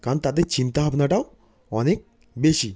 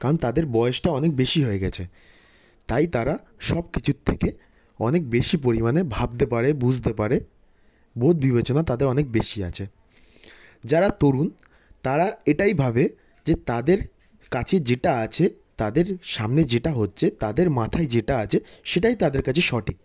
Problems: constant background noise